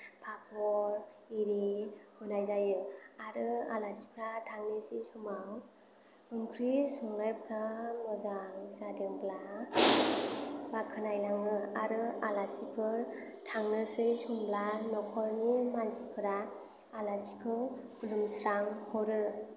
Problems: background sounds at intervals, low volume